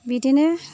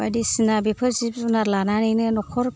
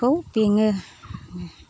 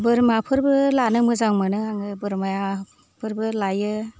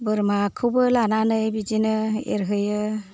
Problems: low volume